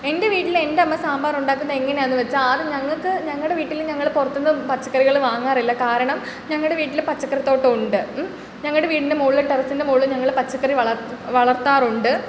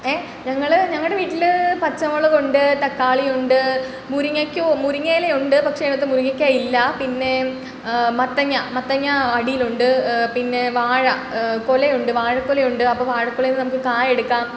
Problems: none marked